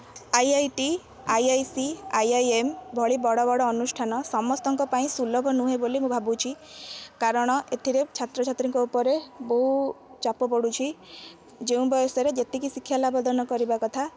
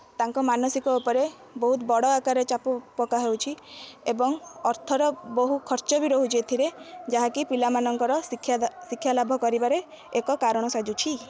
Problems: constant background noise